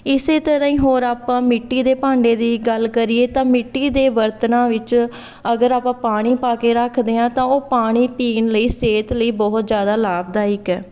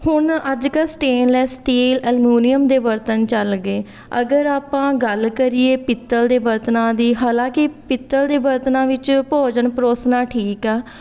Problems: background conversations at intervals